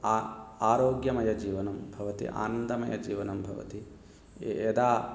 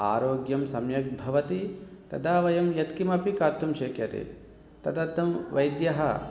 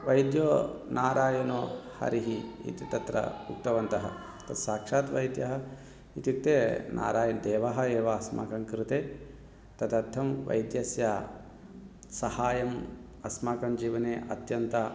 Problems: background conversations at intervals